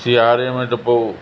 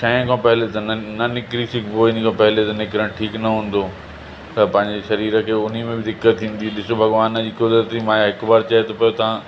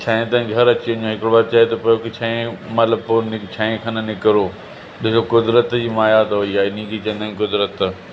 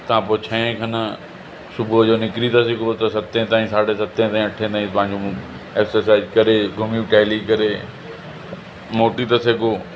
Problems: constant background noise, echo